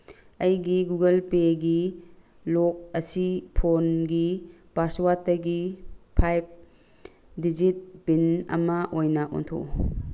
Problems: background sounds at intervals